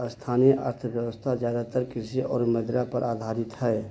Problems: constant background noise, low volume